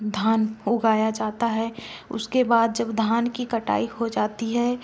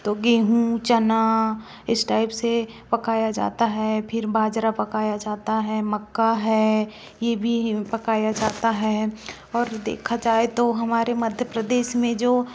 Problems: background sounds at intervals